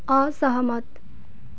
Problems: background sounds at intervals